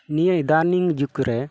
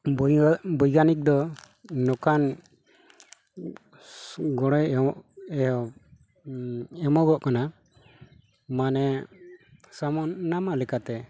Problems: none marked